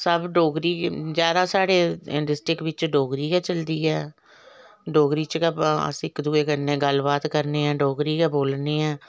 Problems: none marked